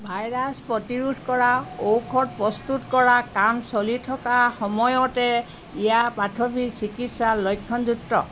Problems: background sounds at intervals